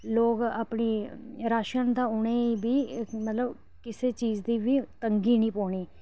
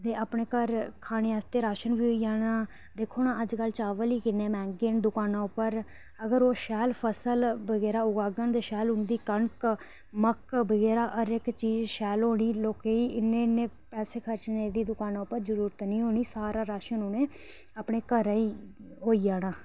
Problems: low volume